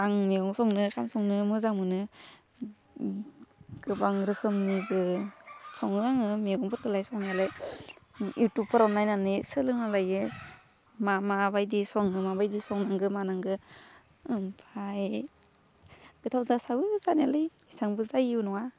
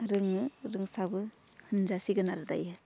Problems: low volume